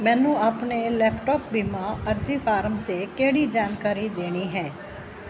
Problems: constant background noise